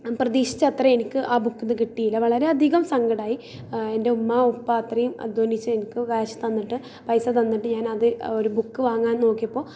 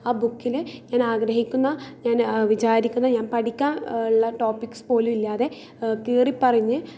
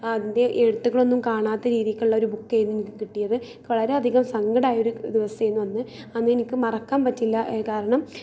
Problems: none marked